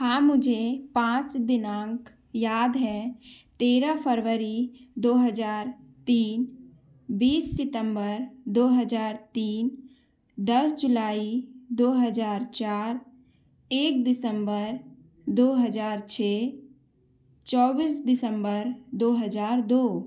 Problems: background sounds at intervals